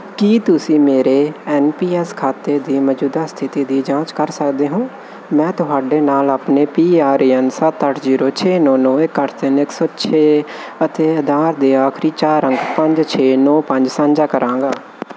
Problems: none marked